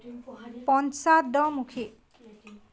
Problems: background conversations at intervals